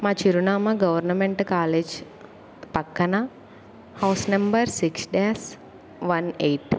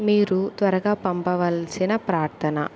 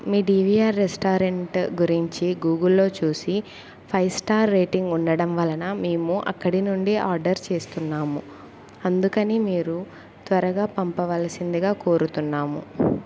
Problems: background conversations at intervals